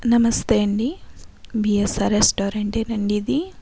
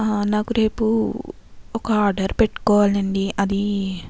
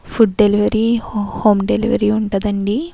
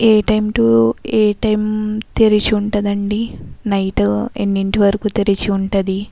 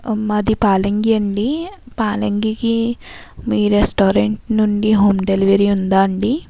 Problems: constant background noise